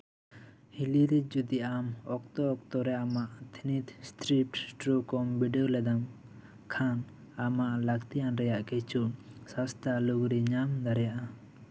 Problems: background conversations at intervals